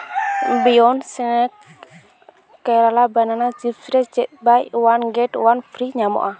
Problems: background sounds at intervals, continuous background conversations